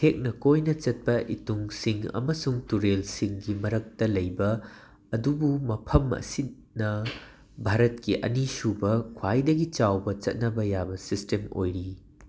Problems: background sounds at intervals